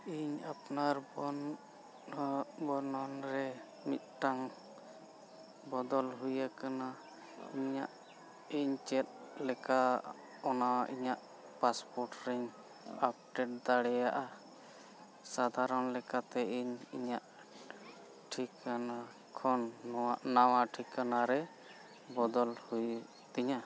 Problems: constant background noise, low volume